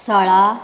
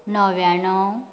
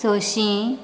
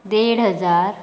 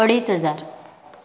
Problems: background sounds at intervals